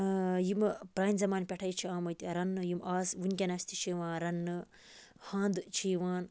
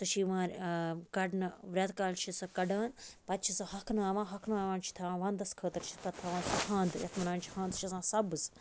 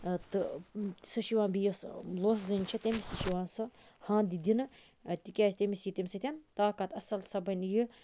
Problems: none marked